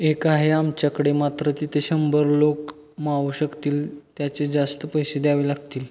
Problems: background sounds at intervals